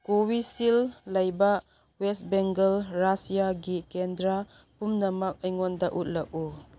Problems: none marked